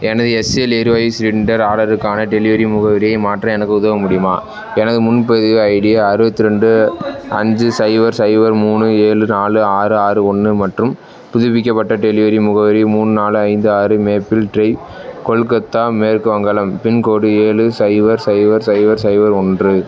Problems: constant background noise, continuous background conversations